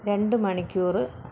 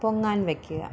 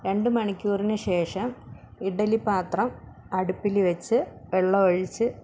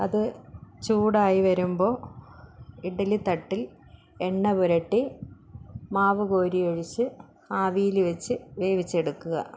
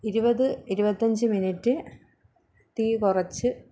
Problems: none marked